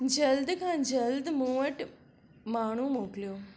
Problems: none marked